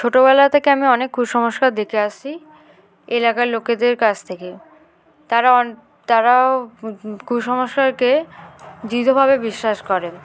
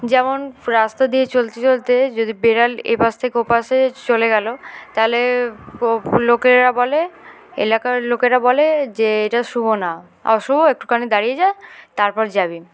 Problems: constant background noise, continuous background conversations